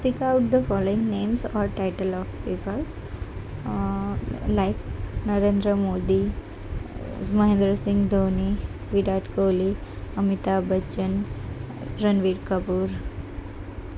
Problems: none marked